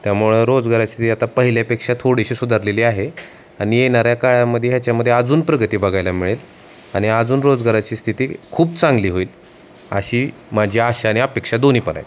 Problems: constant background noise